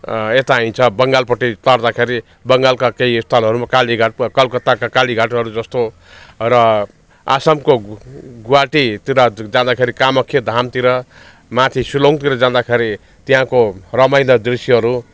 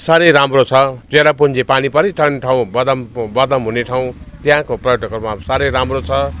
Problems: constant background noise, background conversations at intervals